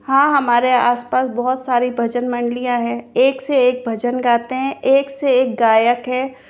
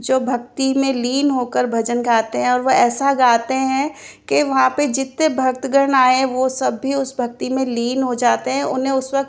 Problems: background sounds at intervals